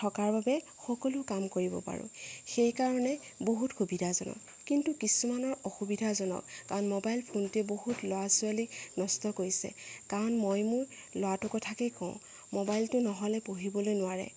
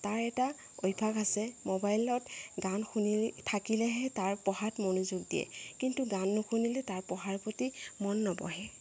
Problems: background sounds at intervals